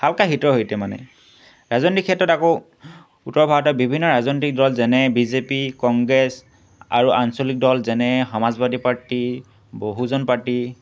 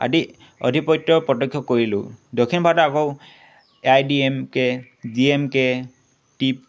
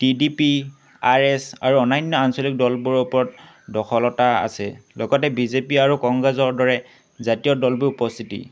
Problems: constant background noise